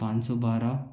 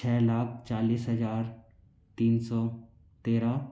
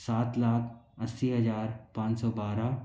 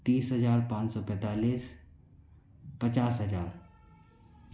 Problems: none marked